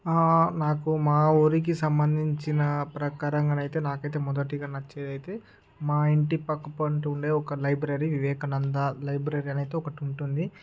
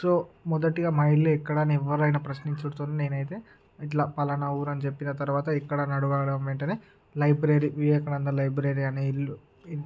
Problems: background sounds at intervals, background conversations at intervals